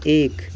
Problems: constant background noise